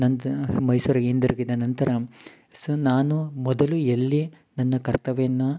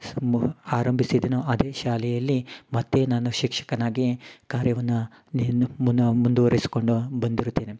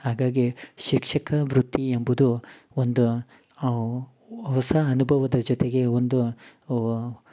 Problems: background sounds at intervals